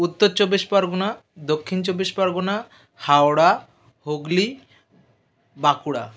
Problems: background sounds at intervals